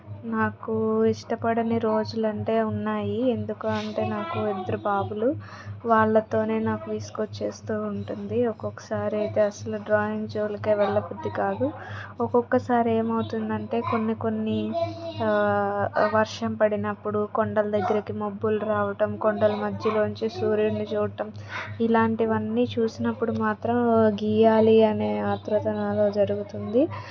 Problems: background conversations at intervals